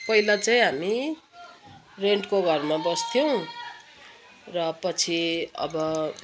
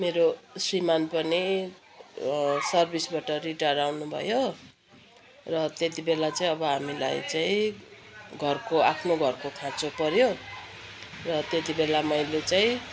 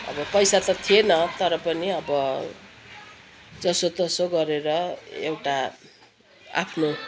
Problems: constant background noise, continuous background conversations